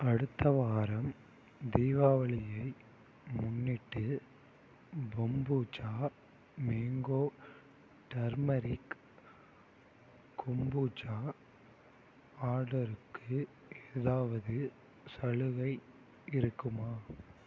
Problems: low volume